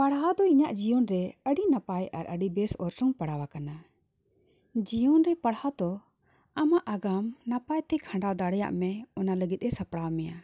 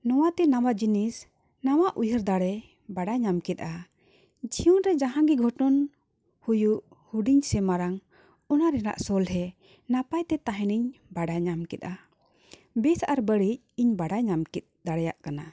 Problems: none marked